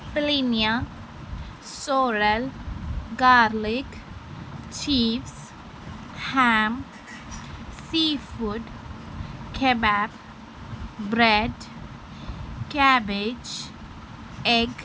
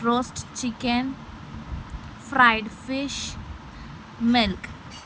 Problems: constant background noise